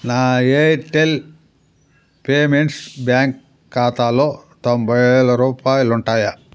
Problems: none marked